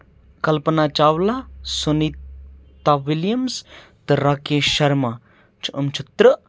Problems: none marked